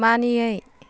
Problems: none marked